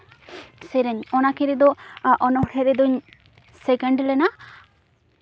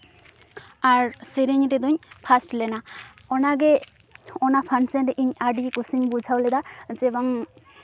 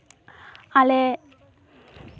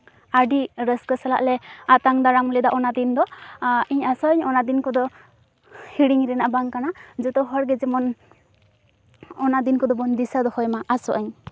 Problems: background sounds at intervals, background conversations at intervals